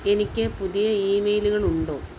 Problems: constant background noise